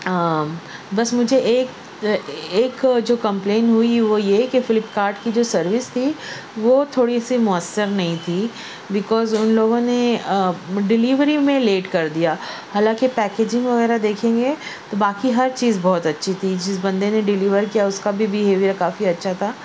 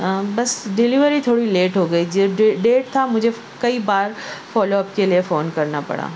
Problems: constant background noise